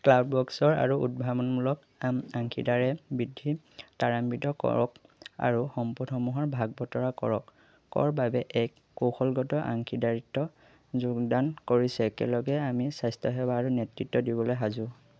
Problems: constant background noise